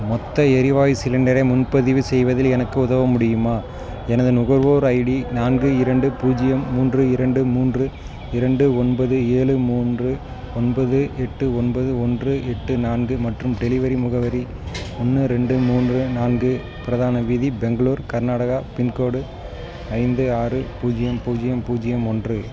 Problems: background sounds at intervals, background conversations at intervals